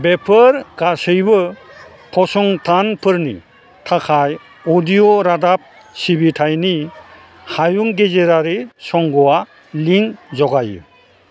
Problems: constant background noise